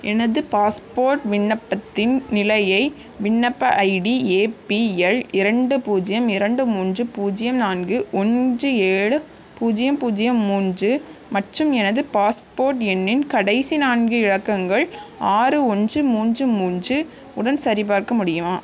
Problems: constant background noise